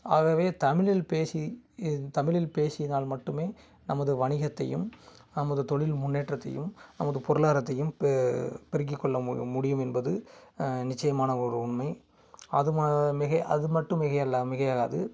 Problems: background sounds at intervals